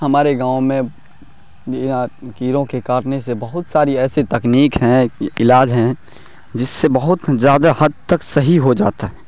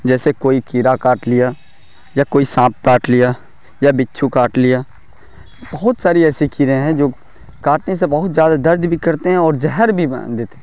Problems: none marked